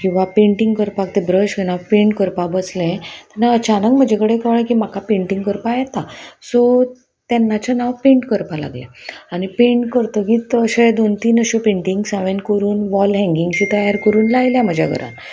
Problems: none marked